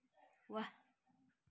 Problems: none marked